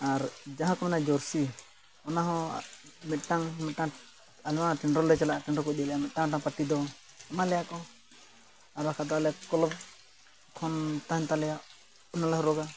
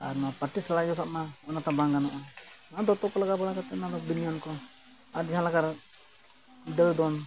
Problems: constant background noise